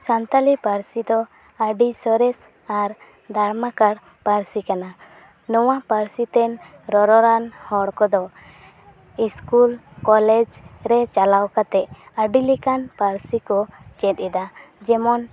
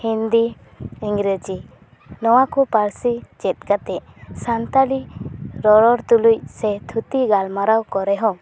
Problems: none marked